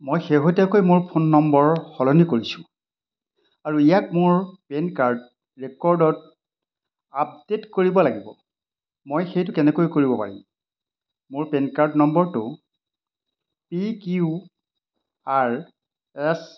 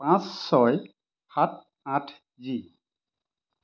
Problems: constant background noise